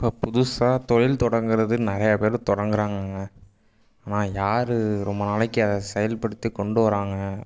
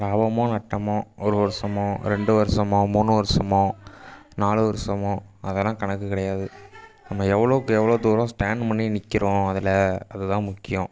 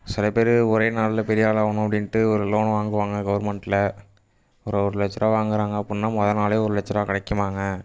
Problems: background sounds at intervals